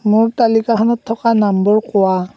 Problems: none marked